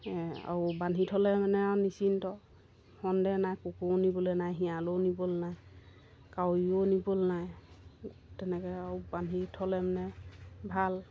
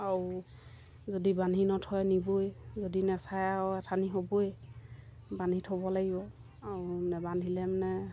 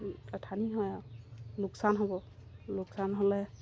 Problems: none marked